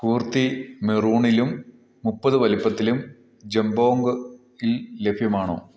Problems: low volume